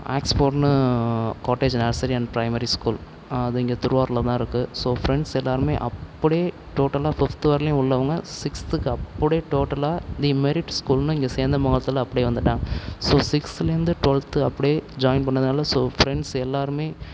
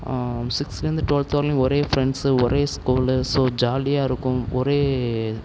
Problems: none marked